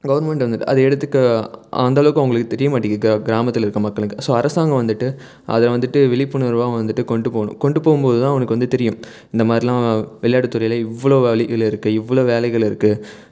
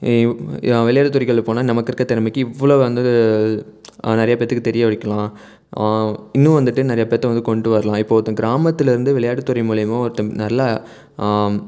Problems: none marked